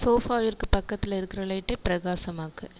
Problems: echo